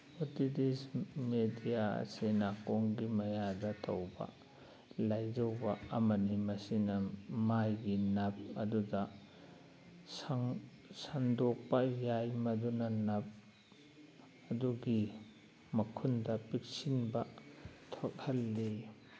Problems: background sounds at intervals